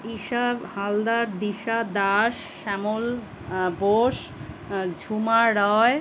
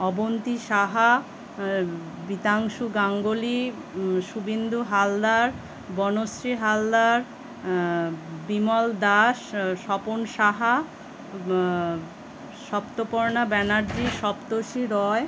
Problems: constant background noise